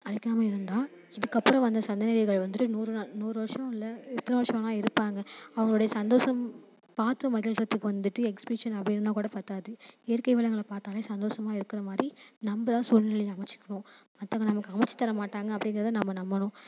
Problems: none marked